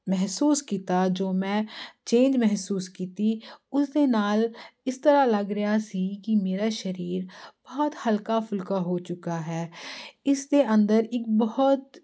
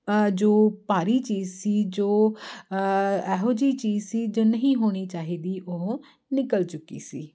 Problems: constant background noise